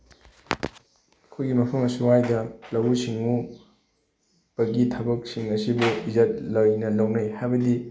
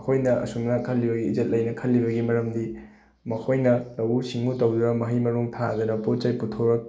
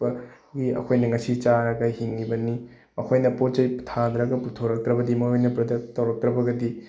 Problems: none marked